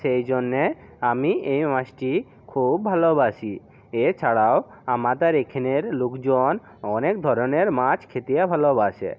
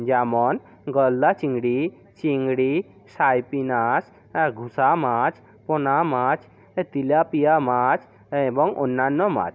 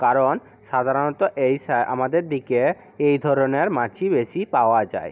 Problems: background sounds at intervals